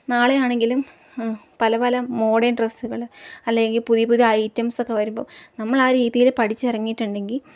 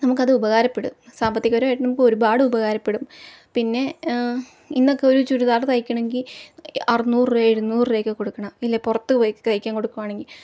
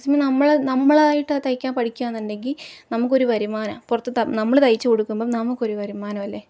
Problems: low volume